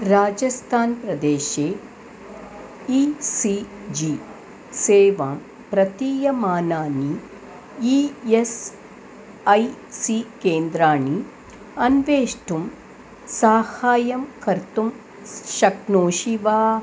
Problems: constant background noise